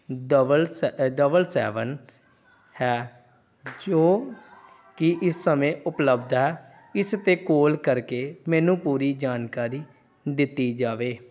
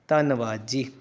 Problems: background conversations at intervals